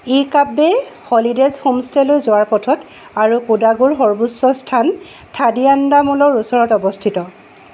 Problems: background sounds at intervals